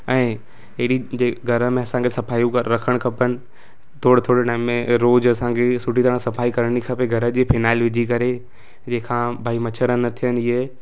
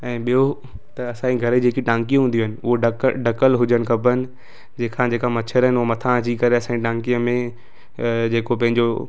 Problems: constant background noise